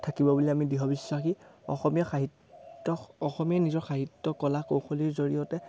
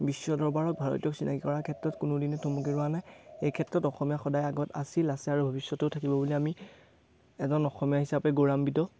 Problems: background sounds at intervals